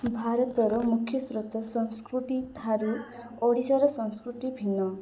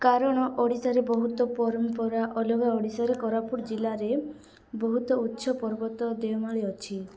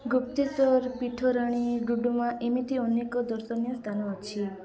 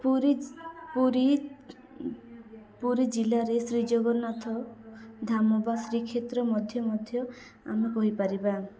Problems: continuous background conversations